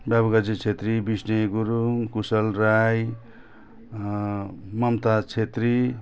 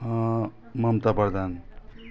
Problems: background sounds at intervals